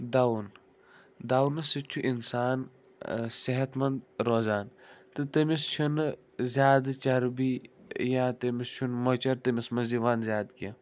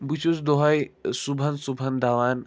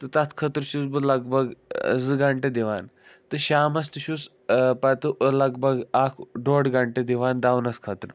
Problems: none marked